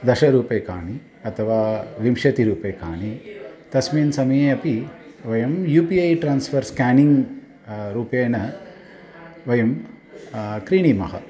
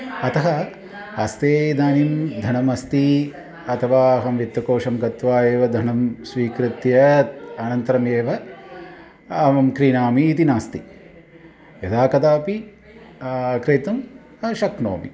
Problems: continuous background conversations